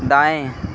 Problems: none marked